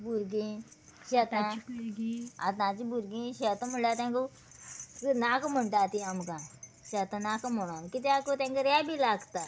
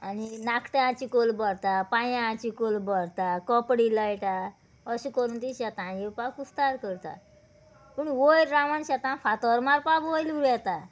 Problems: background sounds at intervals